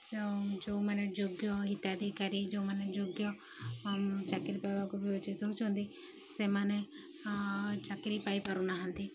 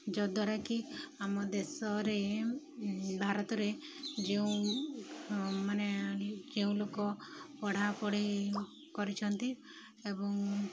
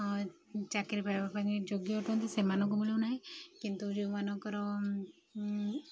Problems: background sounds at intervals